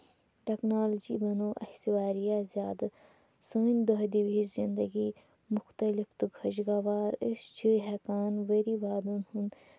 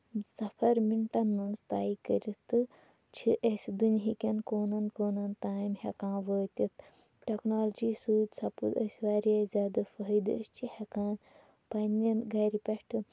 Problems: background sounds at intervals